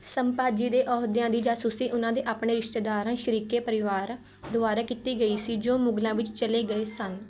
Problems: background sounds at intervals